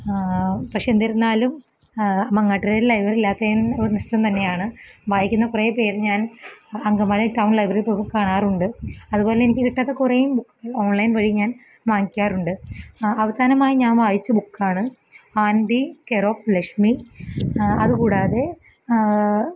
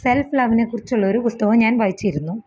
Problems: none marked